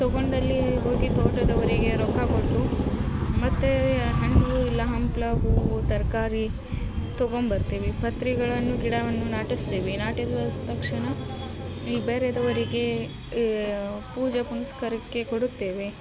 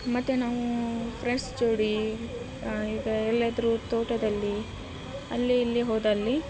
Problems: none marked